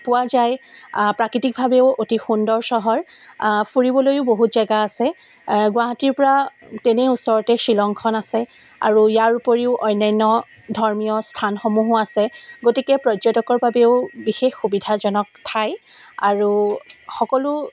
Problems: constant background noise